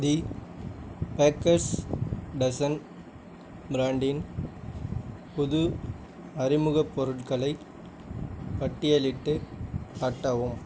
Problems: none marked